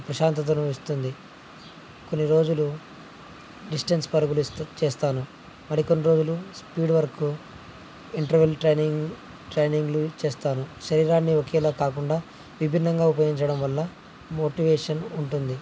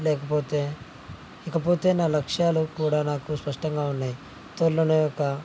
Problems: constant background noise